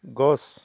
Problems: none marked